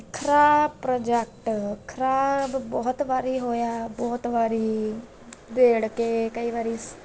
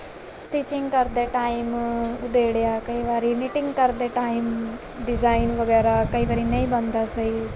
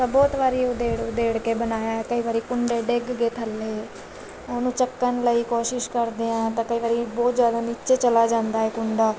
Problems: background sounds at intervals